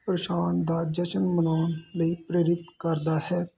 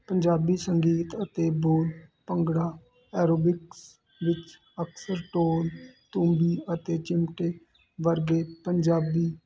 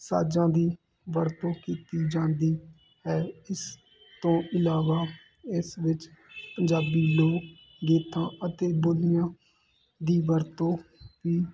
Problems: constant background noise